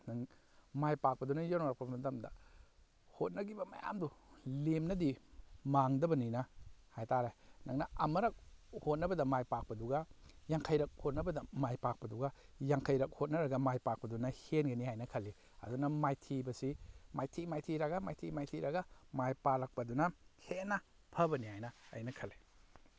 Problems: none marked